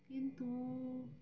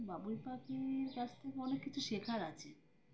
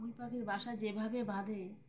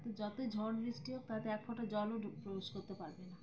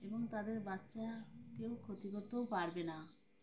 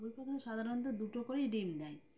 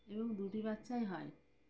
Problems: background sounds at intervals